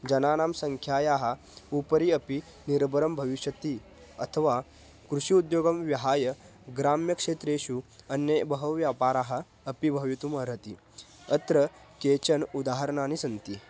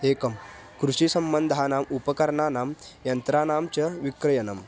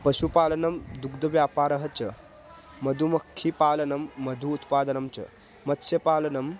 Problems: background sounds at intervals